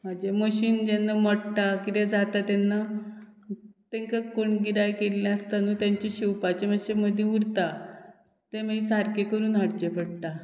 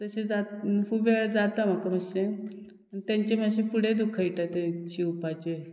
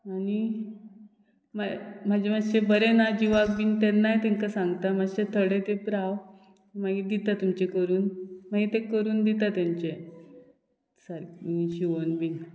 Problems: none marked